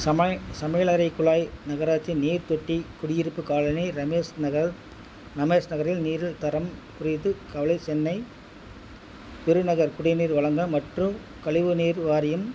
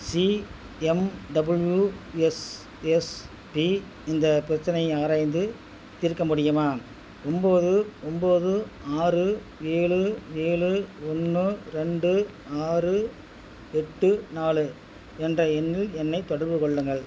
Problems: constant background noise